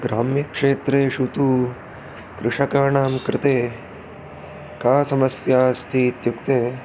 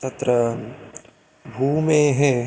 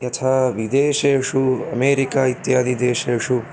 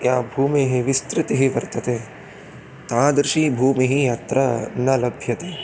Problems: constant background noise